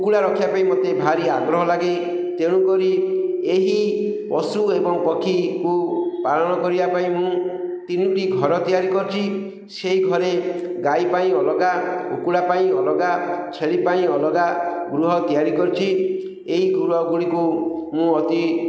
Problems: none marked